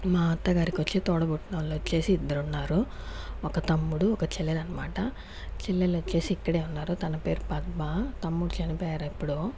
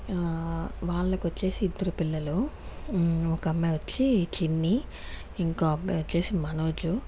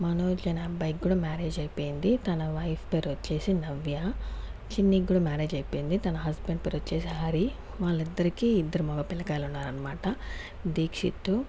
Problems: background sounds at intervals